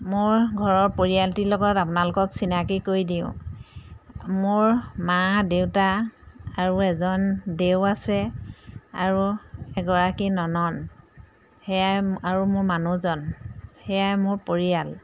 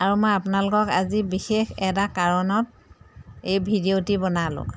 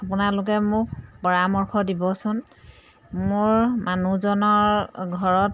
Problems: background sounds at intervals